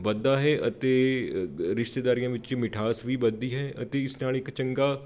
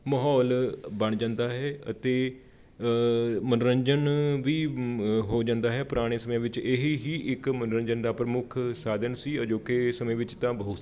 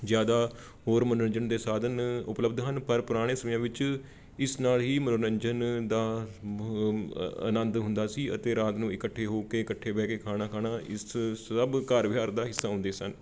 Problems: background sounds at intervals